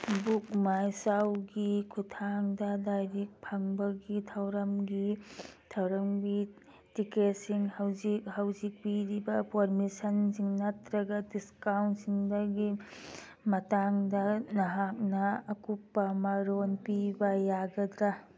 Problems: background sounds at intervals